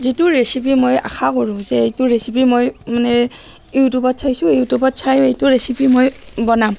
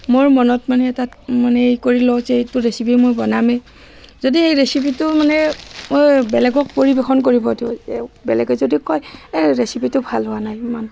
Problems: constant background noise